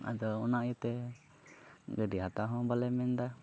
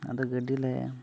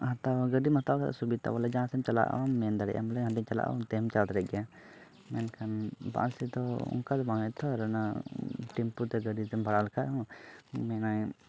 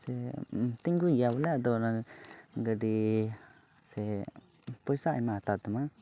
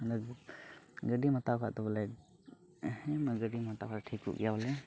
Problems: background sounds at intervals, low volume